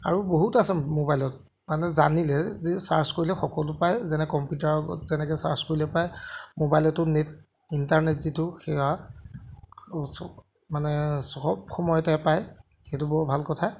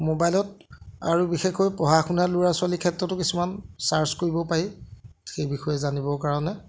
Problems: none marked